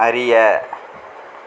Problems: constant background noise